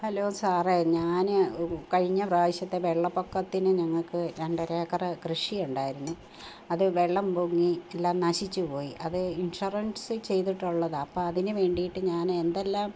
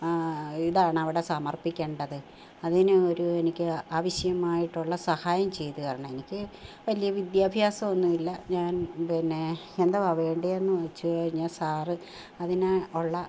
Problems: constant background noise